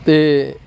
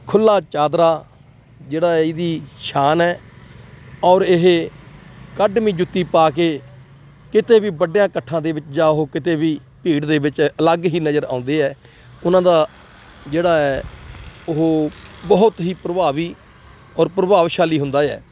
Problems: constant background noise, continuous background conversations